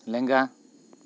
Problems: constant background noise